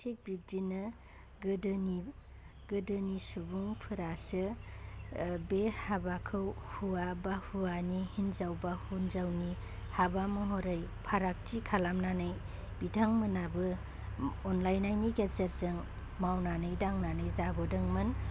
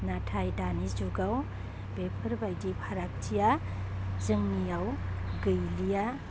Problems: constant background noise